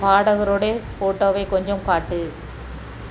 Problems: constant background noise